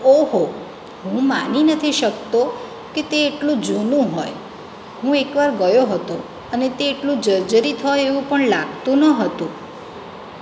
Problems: none marked